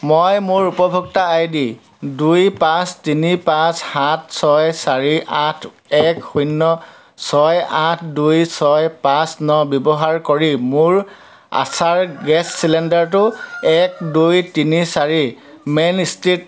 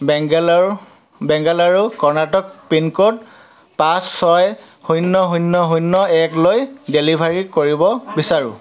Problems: constant background noise, continuous background conversations